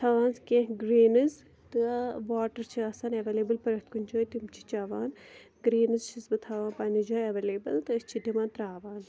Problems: none marked